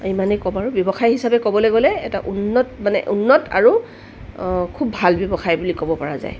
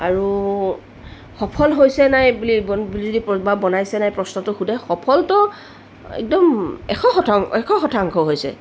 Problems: none marked